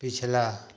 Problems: constant background noise, echo